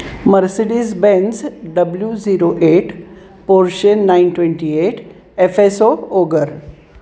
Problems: none marked